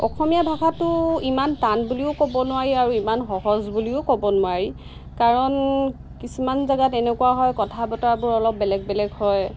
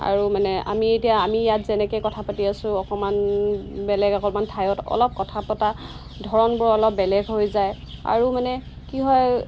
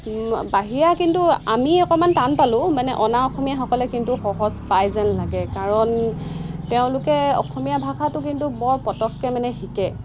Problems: constant background noise